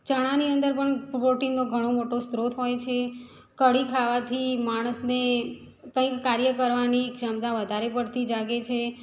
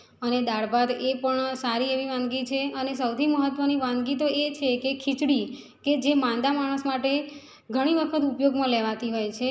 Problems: background sounds at intervals